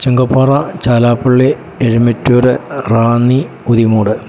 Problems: none marked